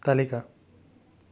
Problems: constant background noise